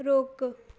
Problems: none marked